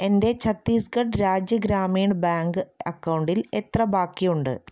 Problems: none marked